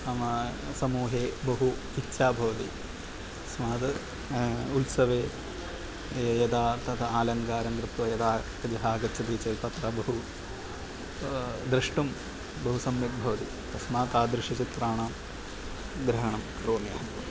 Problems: none marked